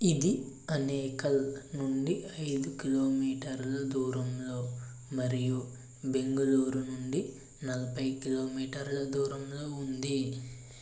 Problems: constant background noise, low volume